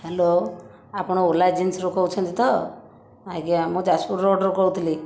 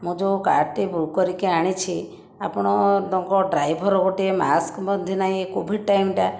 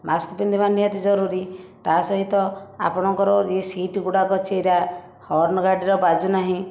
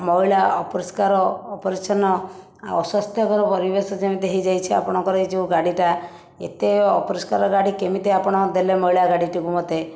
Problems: background sounds at intervals